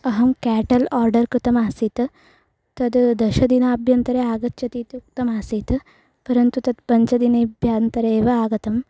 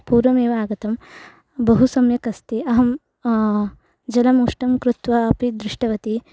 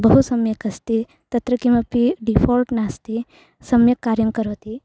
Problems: constant background noise